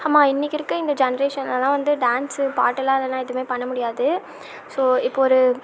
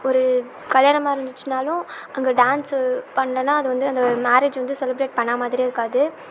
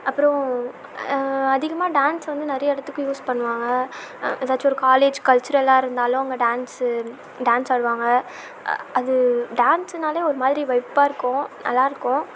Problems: constant background noise